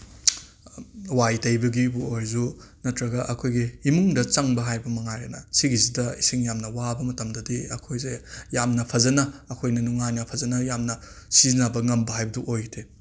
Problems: background sounds at intervals